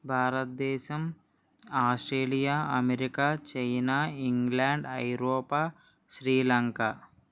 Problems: none marked